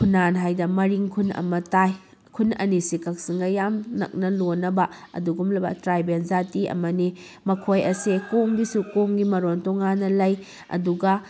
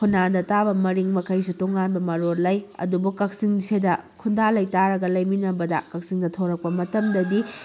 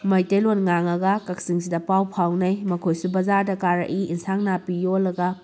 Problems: none marked